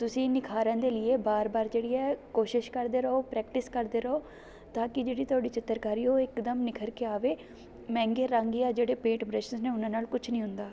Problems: constant background noise